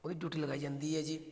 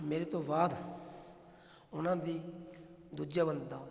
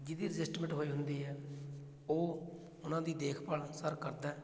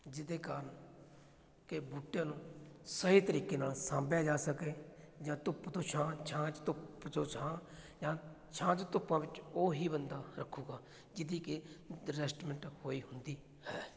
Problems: background sounds at intervals